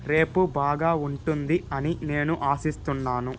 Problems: constant background noise